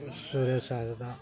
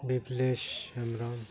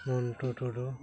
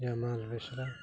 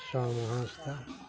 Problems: none marked